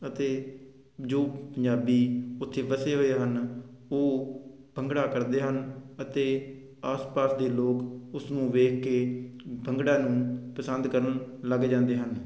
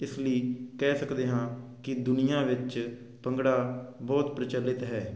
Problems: constant background noise